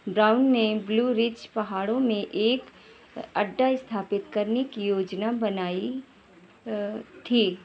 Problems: none marked